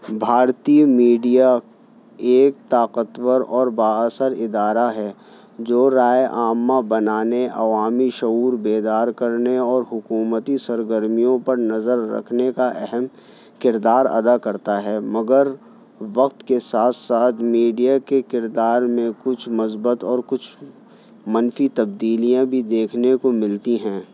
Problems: background sounds at intervals